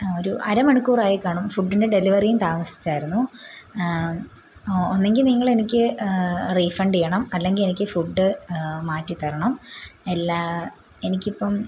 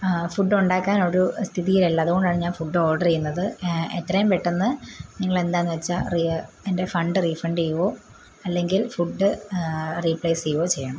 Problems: constant background noise, low volume